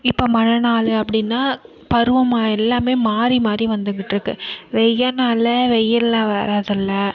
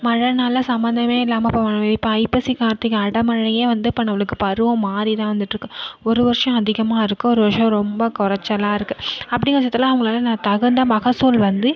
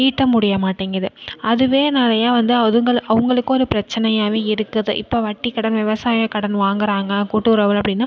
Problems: none marked